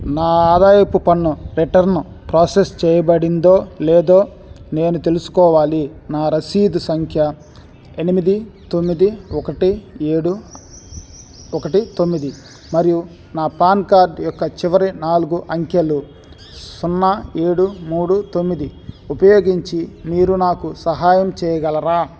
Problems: constant background noise